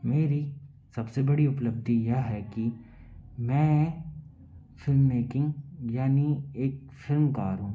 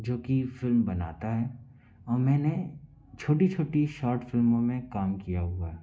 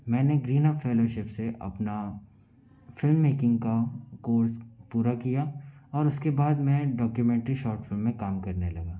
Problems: background sounds at intervals